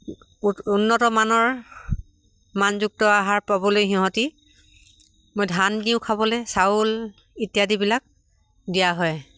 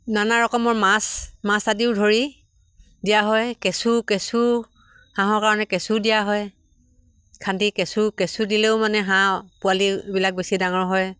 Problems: constant background noise